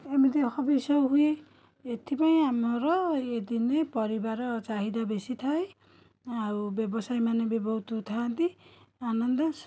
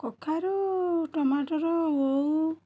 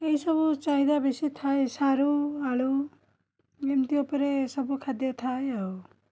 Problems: continuous background conversations